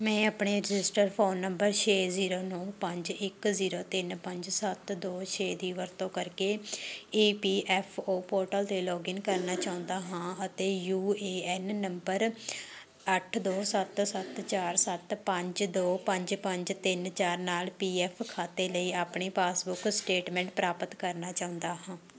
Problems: none marked